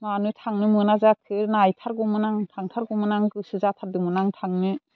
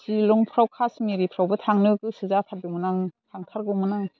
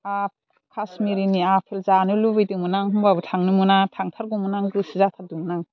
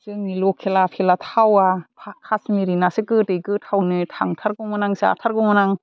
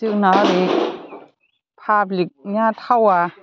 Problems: constant background noise